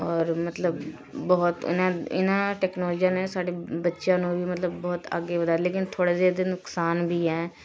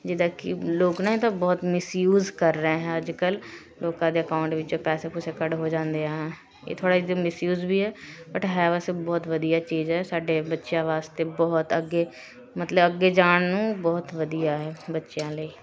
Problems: constant background noise, continuous background conversations